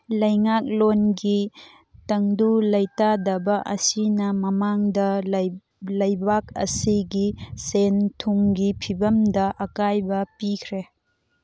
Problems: background sounds at intervals